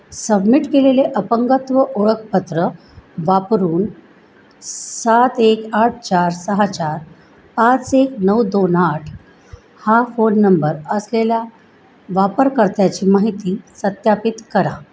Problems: background sounds at intervals